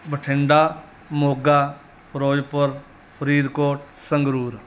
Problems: none marked